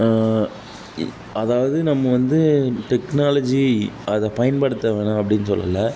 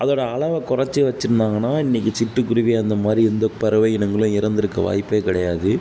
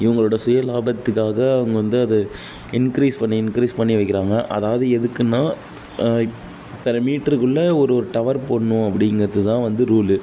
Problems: background sounds at intervals